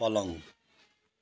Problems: background sounds at intervals